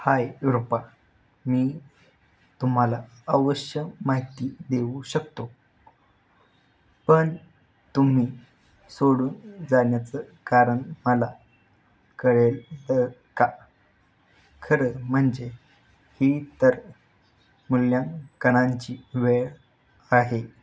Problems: background sounds at intervals